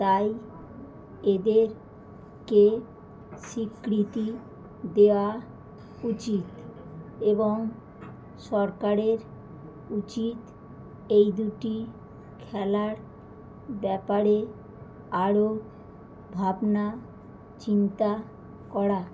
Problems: constant background noise